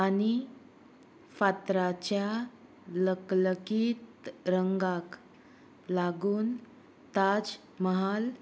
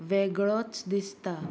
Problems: none marked